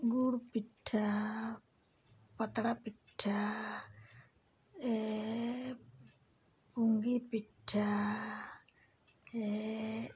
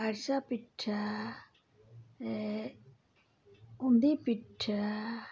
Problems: background sounds at intervals